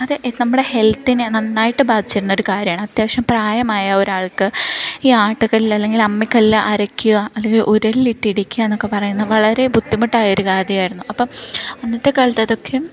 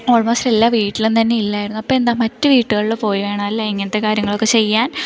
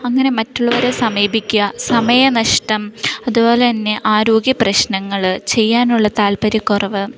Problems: none marked